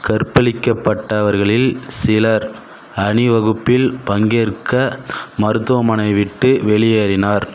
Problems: constant background noise